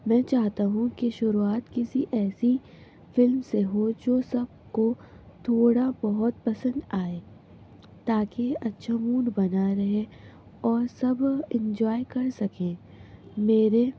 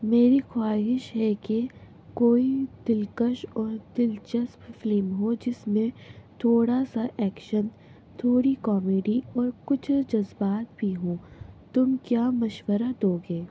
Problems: constant background noise